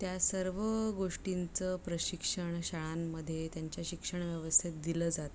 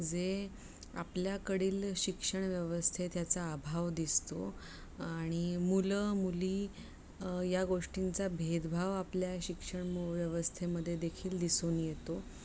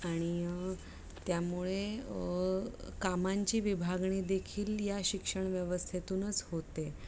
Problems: low volume